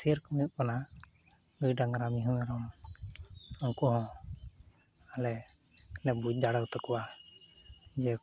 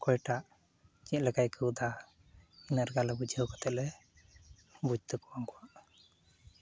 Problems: background sounds at intervals